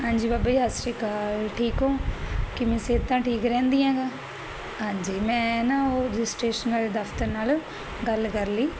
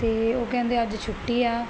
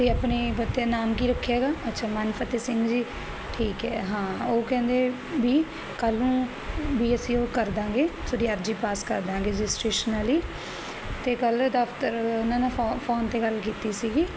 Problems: none marked